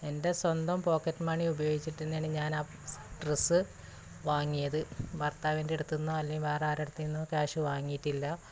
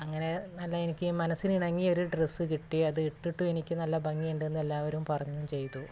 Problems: constant background noise